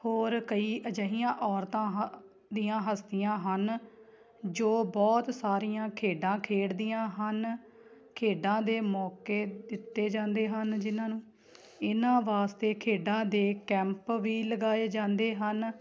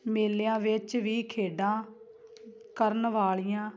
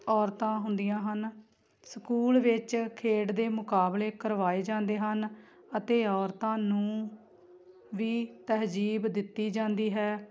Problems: constant background noise